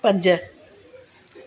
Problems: constant background noise